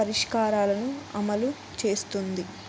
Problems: constant background noise